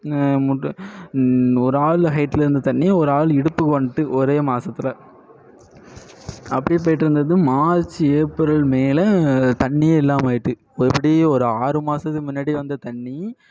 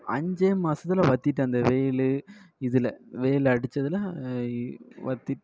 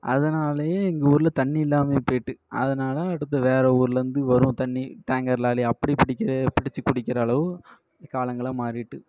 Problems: echo